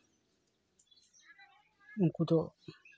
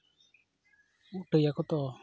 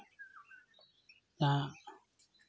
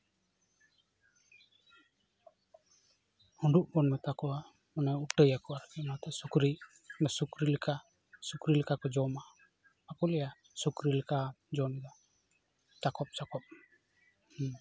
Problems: none marked